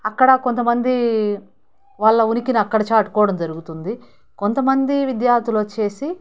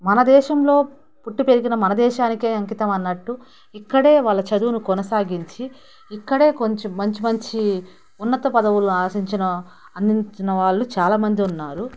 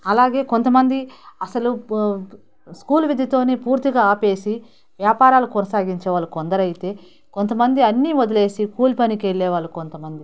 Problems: background conversations at intervals